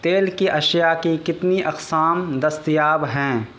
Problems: constant background noise